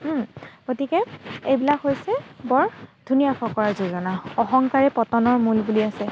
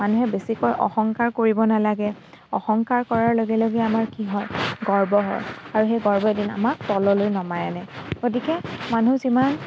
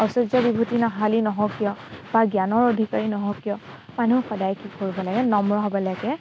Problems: constant background noise